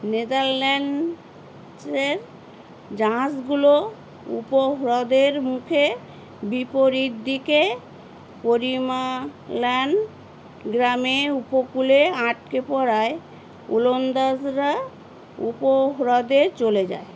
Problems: constant background noise